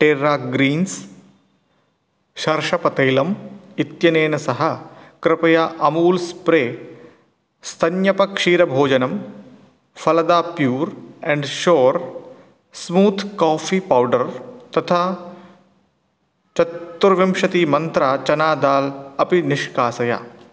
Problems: none marked